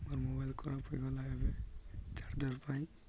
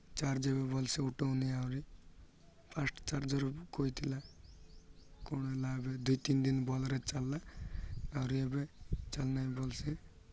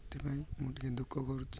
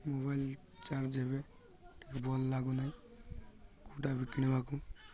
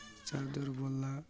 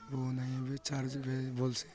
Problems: none marked